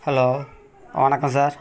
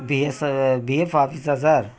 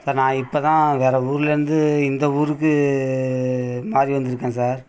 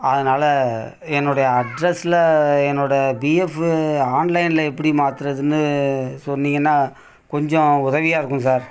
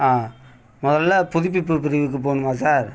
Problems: constant background noise, continuous background conversations